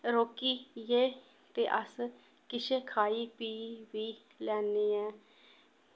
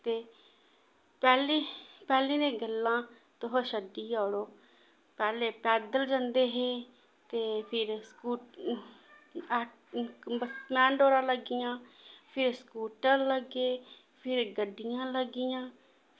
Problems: constant background noise